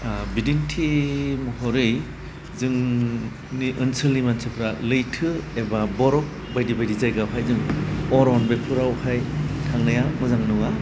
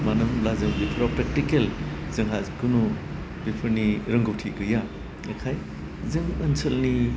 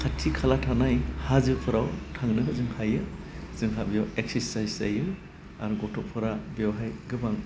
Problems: low volume